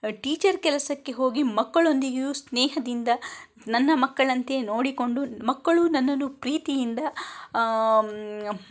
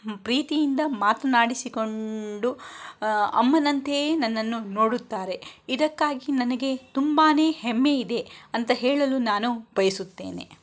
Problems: none marked